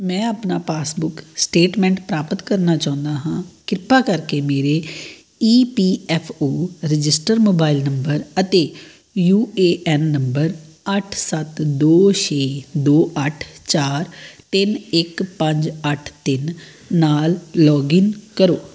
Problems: background sounds at intervals